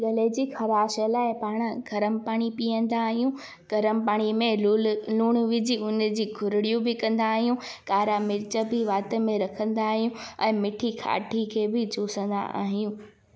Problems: background sounds at intervals